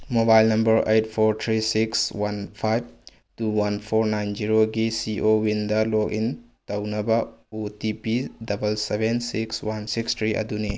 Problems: none marked